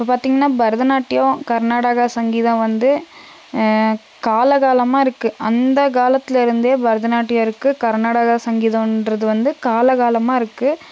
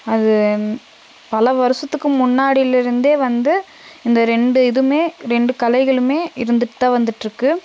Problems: constant background noise